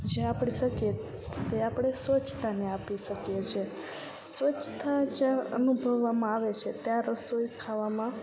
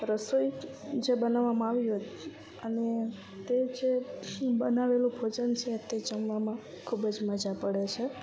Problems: none marked